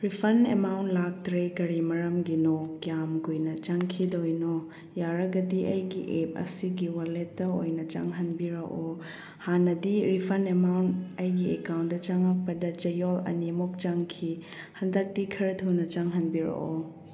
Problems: none marked